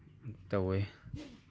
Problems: background conversations at intervals